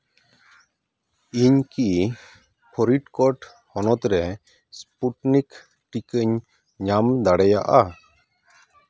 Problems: none marked